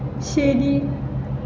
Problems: constant background noise